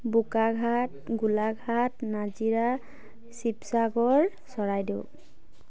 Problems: none marked